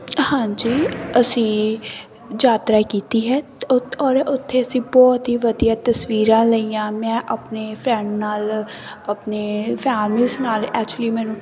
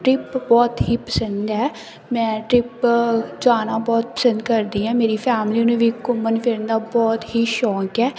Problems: none marked